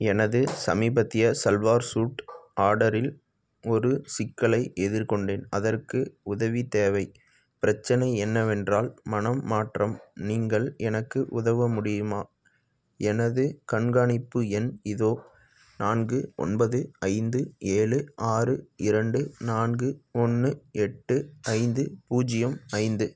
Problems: background sounds at intervals